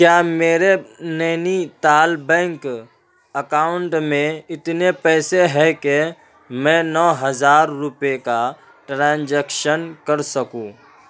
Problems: constant background noise